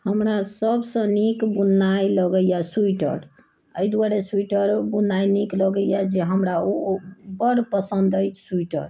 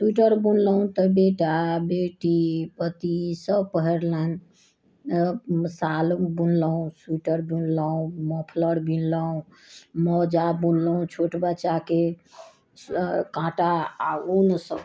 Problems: none marked